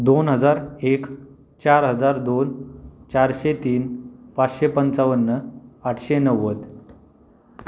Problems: none marked